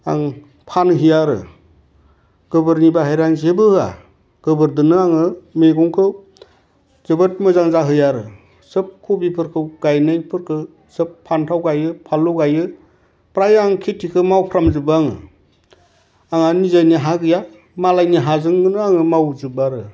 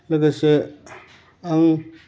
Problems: none marked